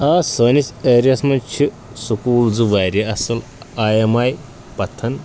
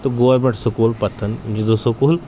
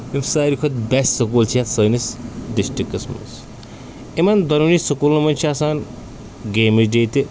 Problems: constant background noise